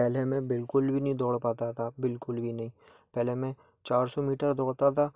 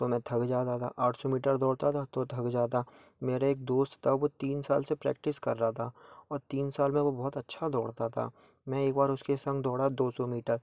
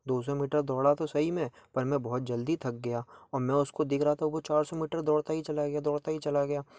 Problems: background sounds at intervals